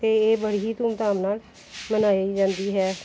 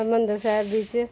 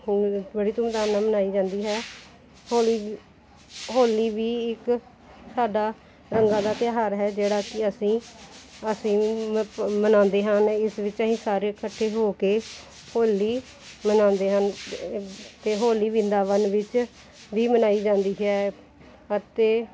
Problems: none marked